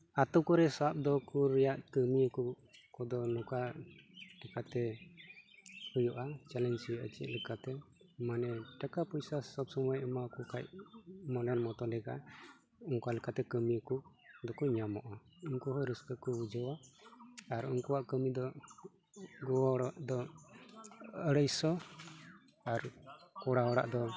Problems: background sounds at intervals, background conversations at intervals